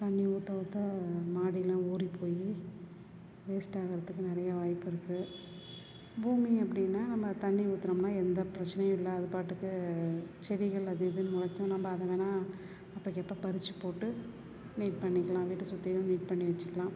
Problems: none marked